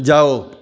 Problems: constant background noise, echo